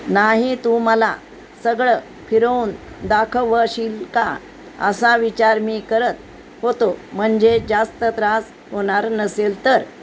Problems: constant background noise